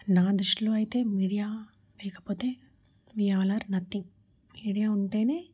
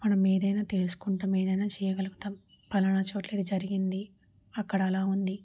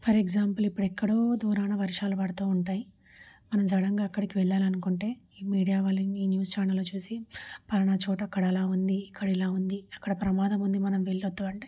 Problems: none marked